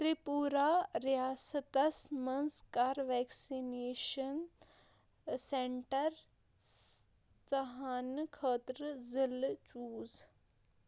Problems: constant background noise